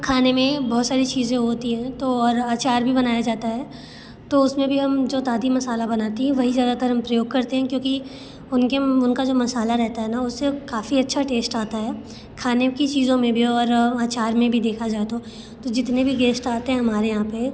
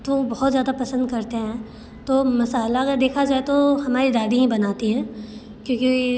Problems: none marked